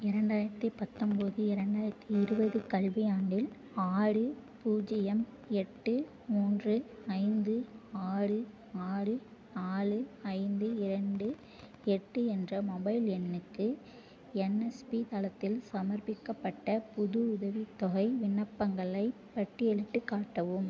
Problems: none marked